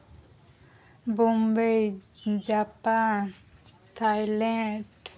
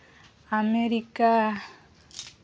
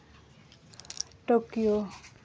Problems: none marked